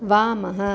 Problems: none marked